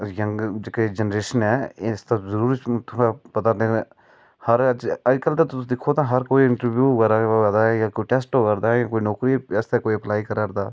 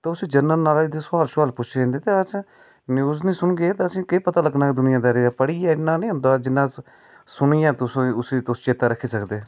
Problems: none marked